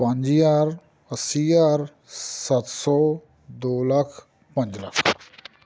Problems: none marked